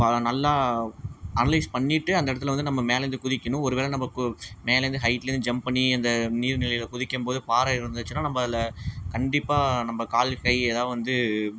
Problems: background sounds at intervals